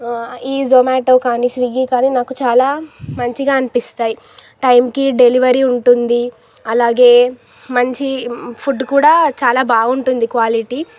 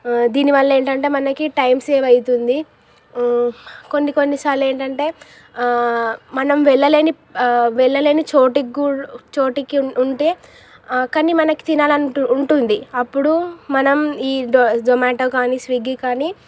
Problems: none marked